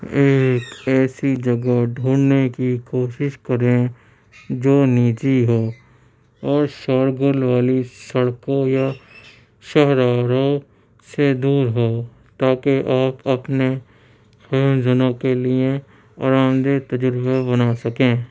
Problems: background sounds at intervals